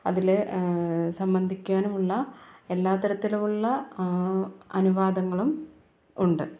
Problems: background sounds at intervals